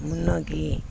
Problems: constant background noise